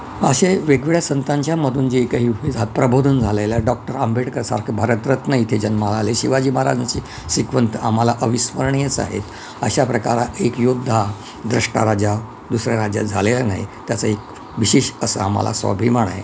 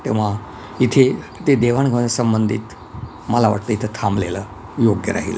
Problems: constant background noise